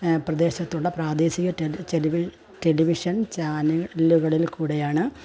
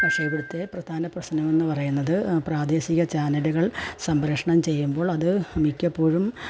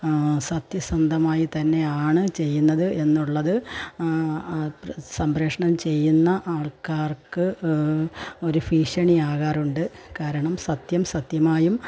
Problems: background sounds at intervals, low volume